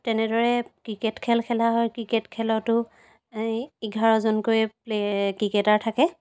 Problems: background sounds at intervals